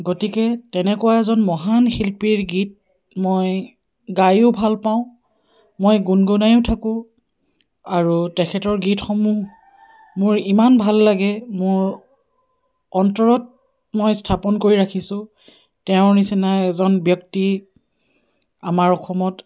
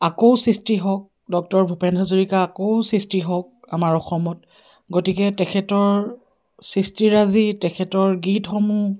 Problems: none marked